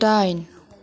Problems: none marked